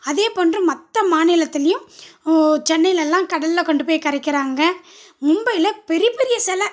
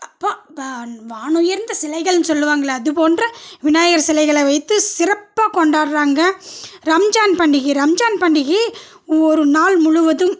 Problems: none marked